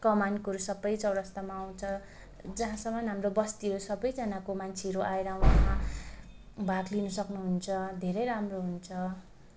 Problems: constant background noise